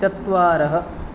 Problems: constant background noise